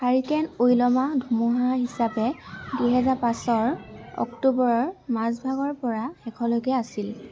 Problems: none marked